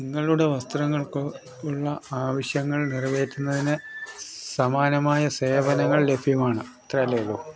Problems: constant background noise, background conversations at intervals, low volume